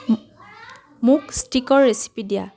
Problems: background conversations at intervals